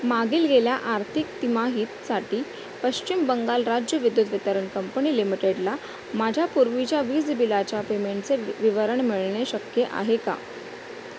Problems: constant background noise